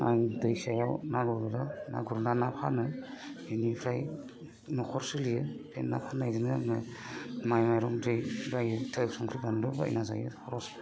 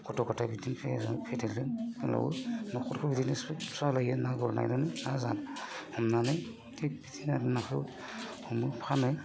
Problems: constant background noise